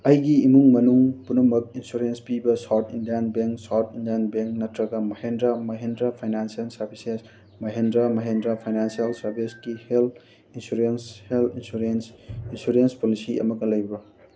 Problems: background sounds at intervals